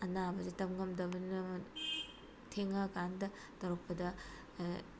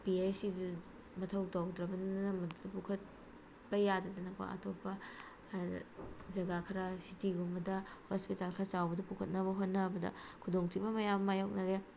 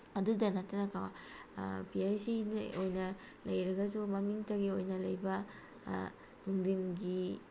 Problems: constant background noise